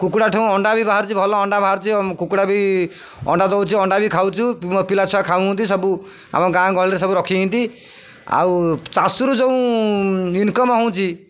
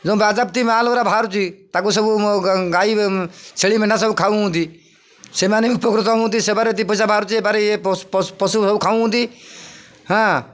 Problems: none marked